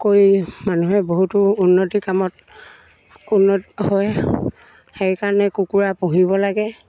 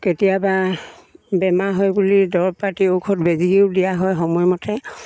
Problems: none marked